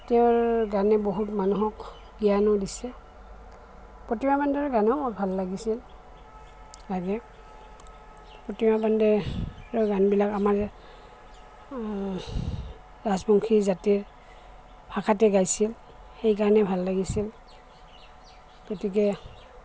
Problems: constant background noise, background conversations at intervals